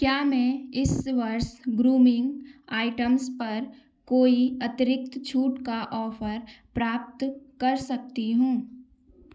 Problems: background sounds at intervals